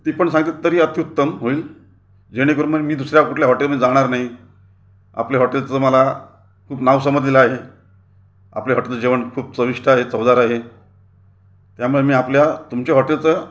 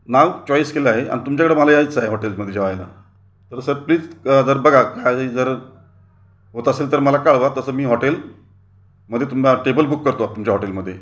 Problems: none marked